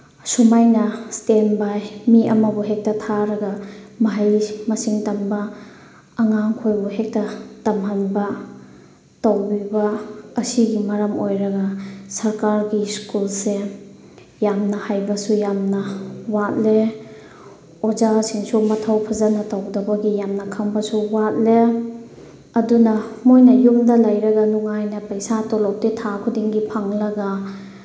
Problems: none marked